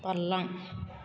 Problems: none marked